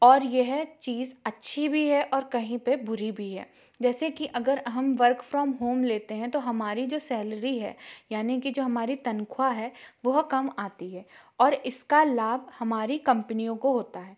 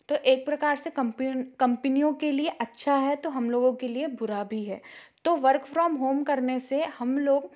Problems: none marked